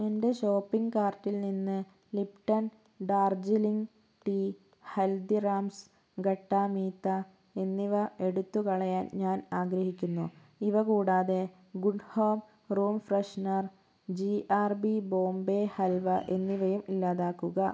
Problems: low volume